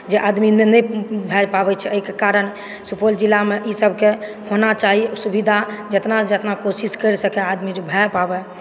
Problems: background sounds at intervals, background conversations at intervals